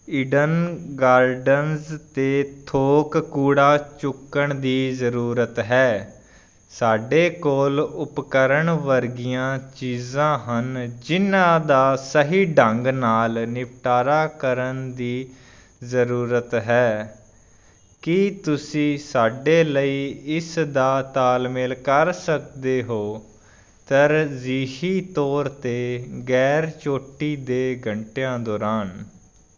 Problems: constant background noise